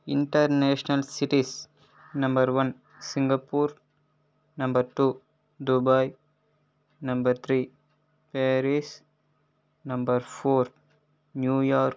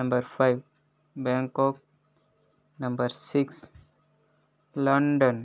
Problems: none marked